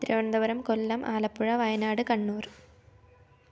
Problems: low volume